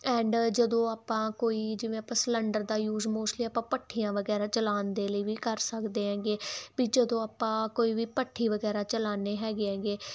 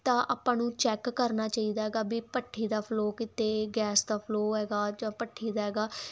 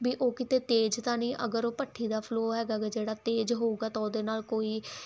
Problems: none marked